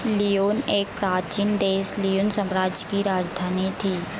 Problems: constant background noise